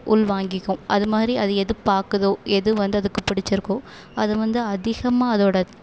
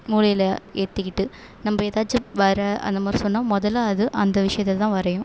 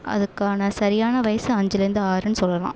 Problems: constant background noise